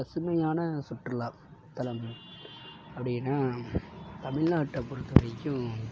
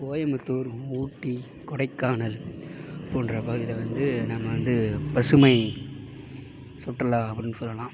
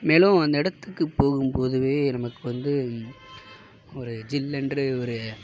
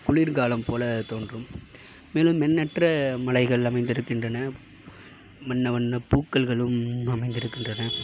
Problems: background sounds at intervals